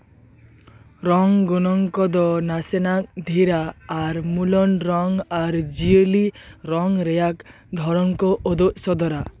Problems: none marked